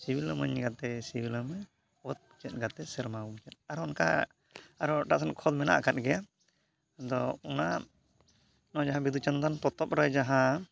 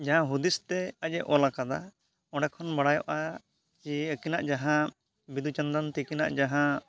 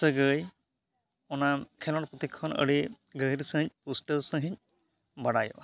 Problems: none marked